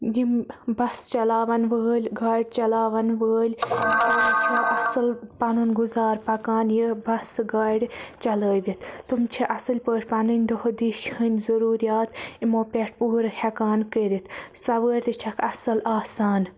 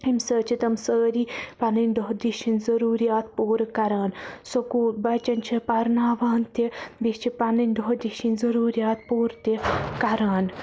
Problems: constant background noise